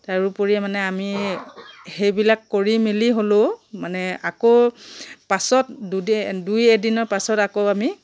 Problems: none marked